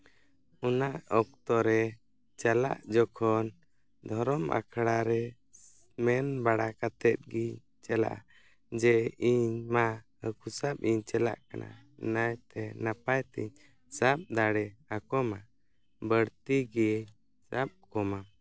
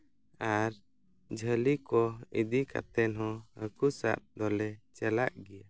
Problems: none marked